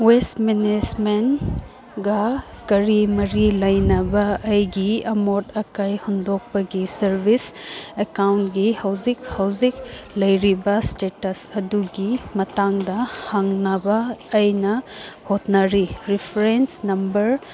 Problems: background sounds at intervals, background conversations at intervals